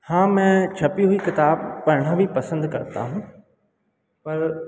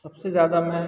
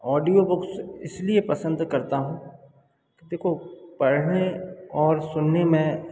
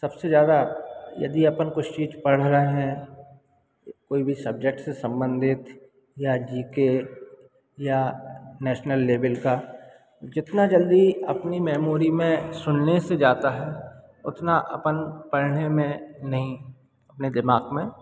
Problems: background sounds at intervals